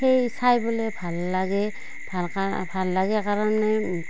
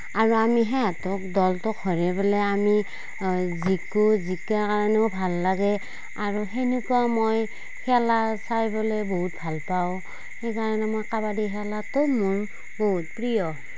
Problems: background sounds at intervals